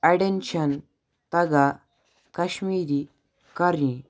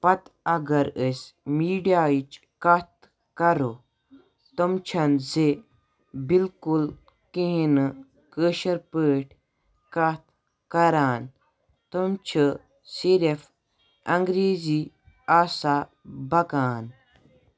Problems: none marked